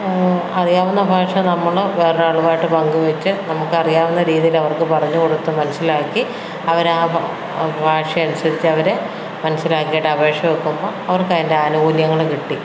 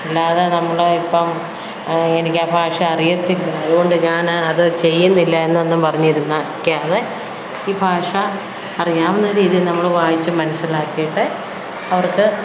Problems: none marked